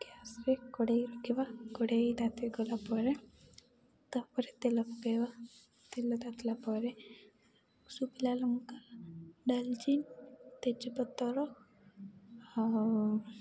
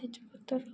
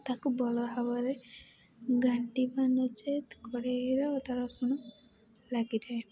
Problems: background sounds at intervals, background conversations at intervals, low volume